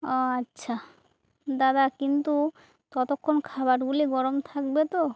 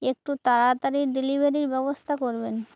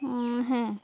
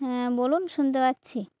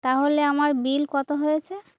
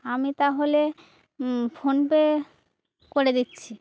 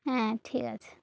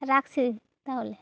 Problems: none marked